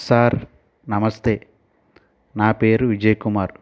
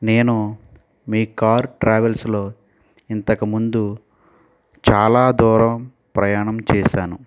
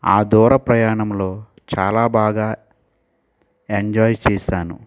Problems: none marked